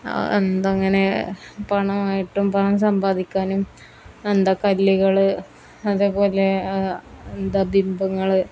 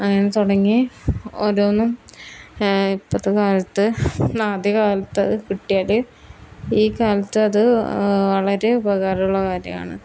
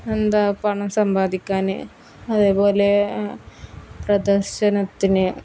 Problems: none marked